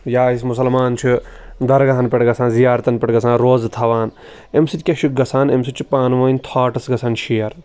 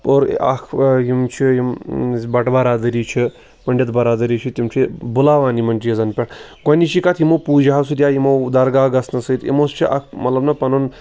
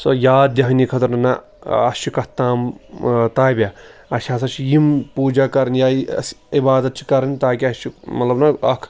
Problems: background sounds at intervals